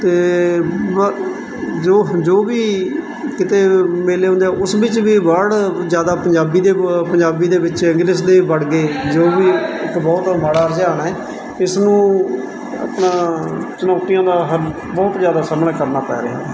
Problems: constant background noise, background conversations at intervals